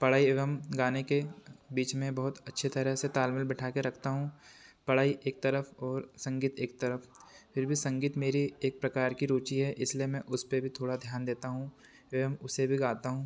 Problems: constant background noise